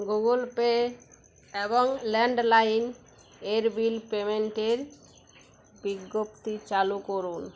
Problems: none marked